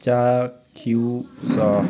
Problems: constant background noise